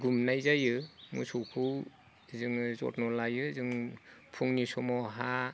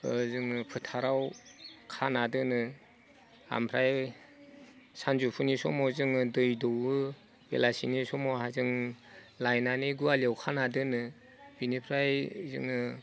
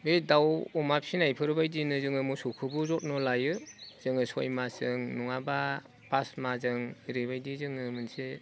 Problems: none marked